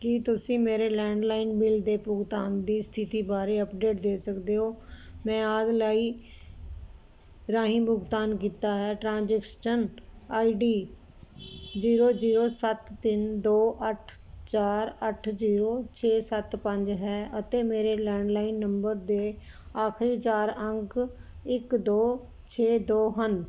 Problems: none marked